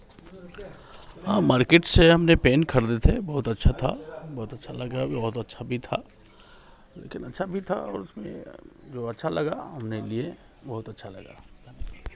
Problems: none marked